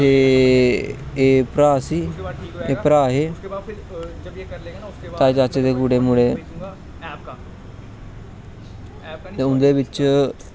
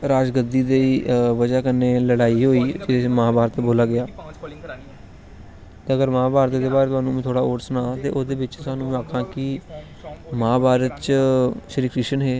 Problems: none marked